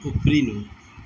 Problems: background sounds at intervals, low volume